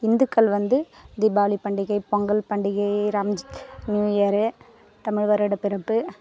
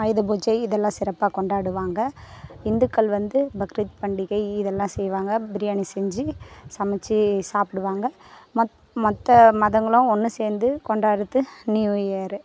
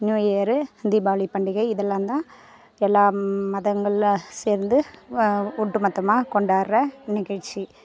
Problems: constant background noise, background conversations at intervals